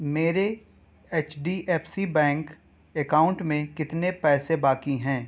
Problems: background sounds at intervals